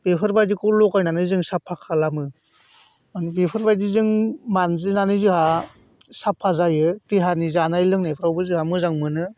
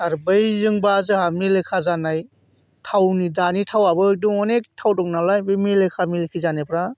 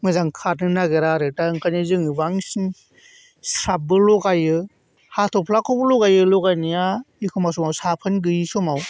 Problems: none marked